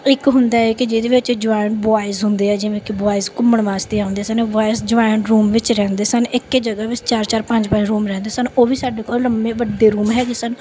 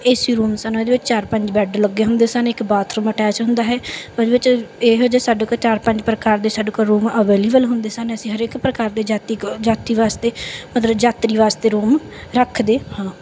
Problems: background sounds at intervals, background conversations at intervals